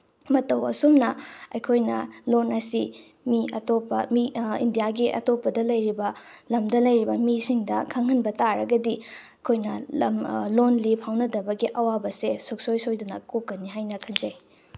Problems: background sounds at intervals